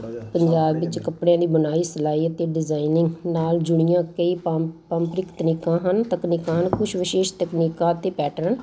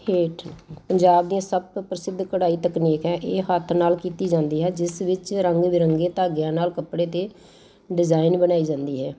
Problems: constant background noise